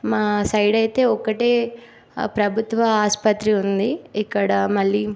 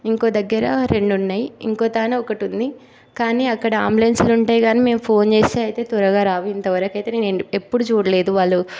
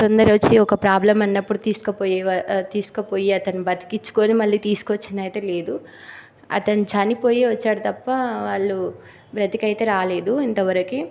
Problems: constant background noise